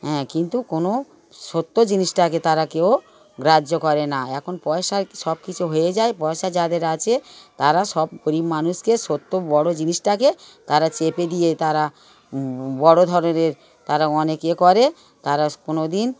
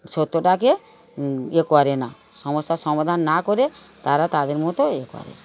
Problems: background sounds at intervals, background conversations at intervals